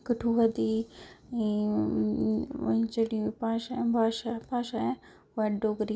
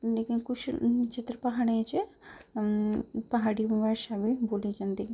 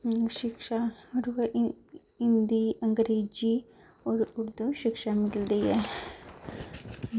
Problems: low volume